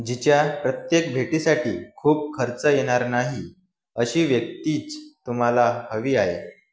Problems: none marked